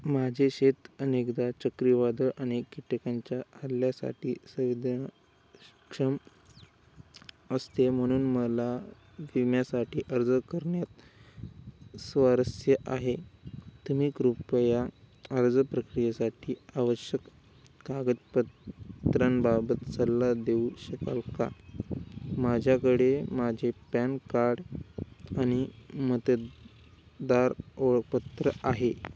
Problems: constant background noise